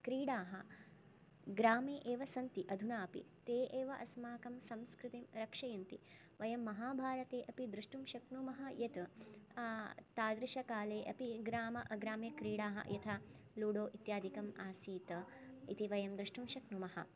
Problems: none marked